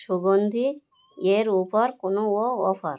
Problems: background sounds at intervals